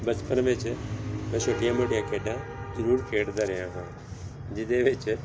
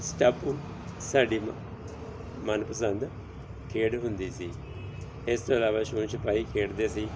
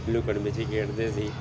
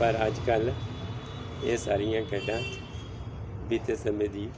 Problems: background sounds at intervals